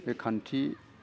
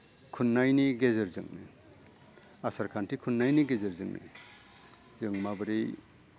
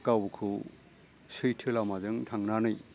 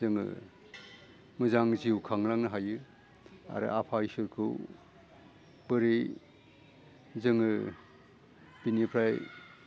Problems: low volume